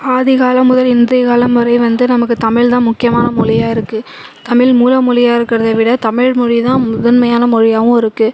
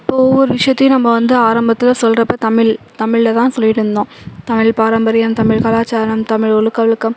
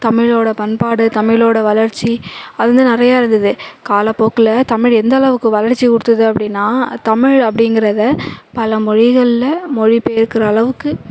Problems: background sounds at intervals, background conversations at intervals